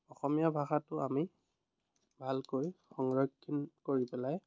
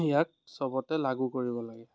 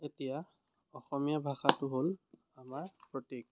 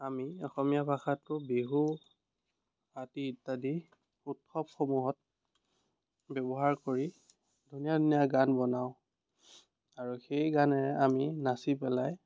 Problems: none marked